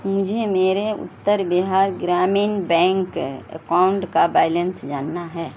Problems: constant background noise